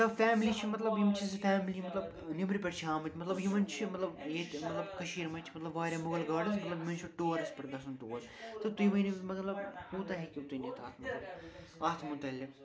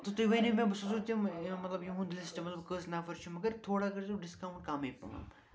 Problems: constant background noise, continuous background conversations